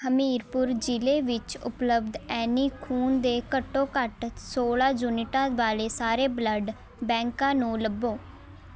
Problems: none marked